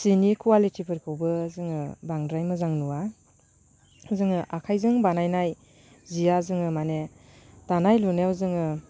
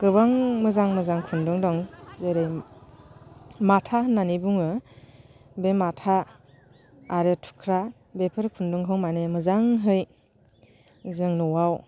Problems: constant background noise